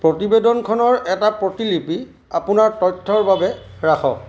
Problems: constant background noise, background conversations at intervals